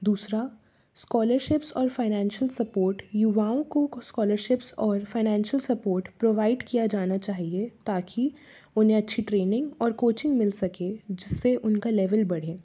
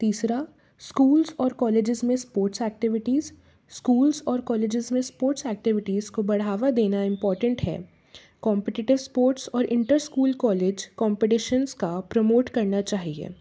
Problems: background sounds at intervals